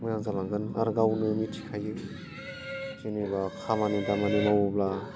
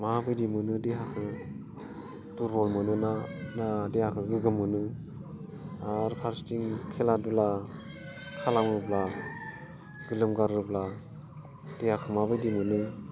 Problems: low volume